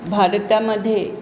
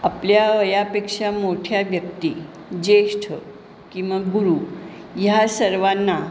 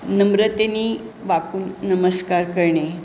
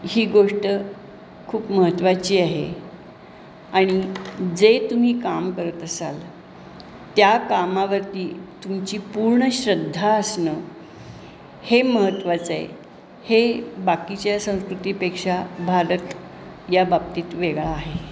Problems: constant background noise